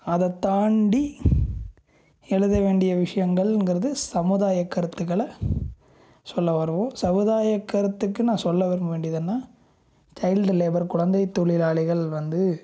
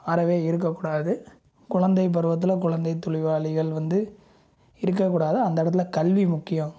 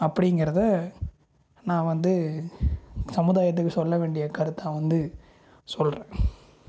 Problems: low volume